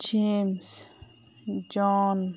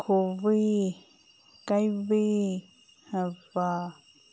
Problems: background sounds at intervals